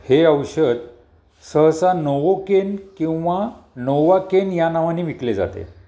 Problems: background sounds at intervals